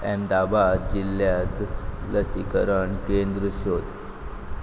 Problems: background sounds at intervals